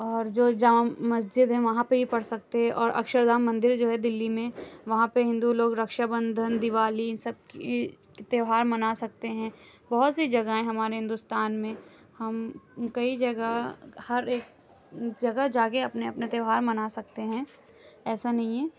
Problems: none marked